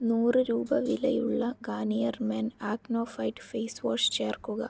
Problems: low volume